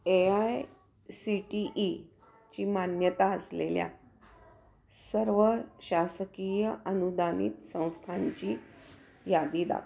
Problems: background sounds at intervals